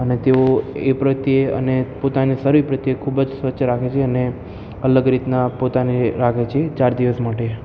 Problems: constant background noise